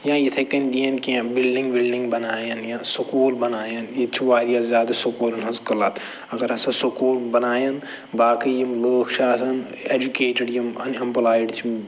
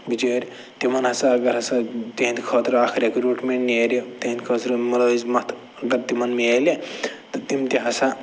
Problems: none marked